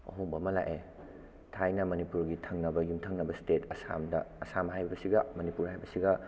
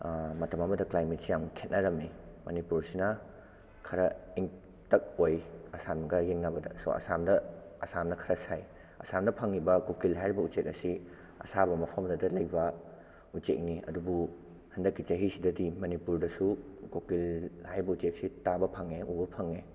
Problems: background sounds at intervals